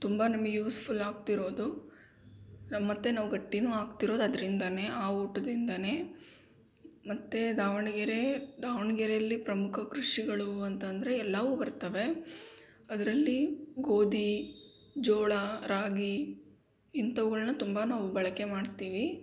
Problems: background sounds at intervals